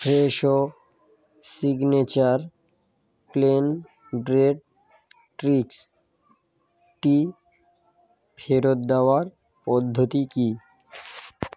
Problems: background sounds at intervals